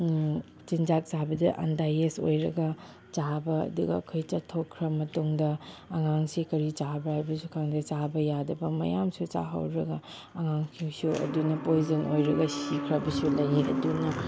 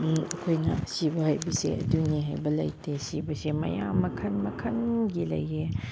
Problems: background sounds at intervals